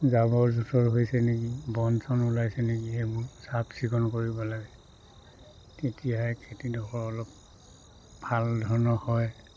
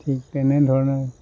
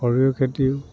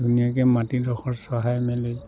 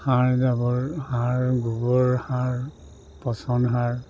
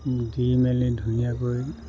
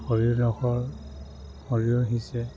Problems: none marked